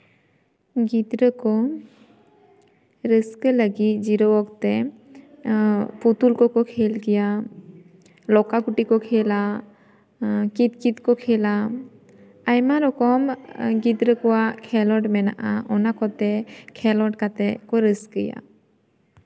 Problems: constant background noise, background conversations at intervals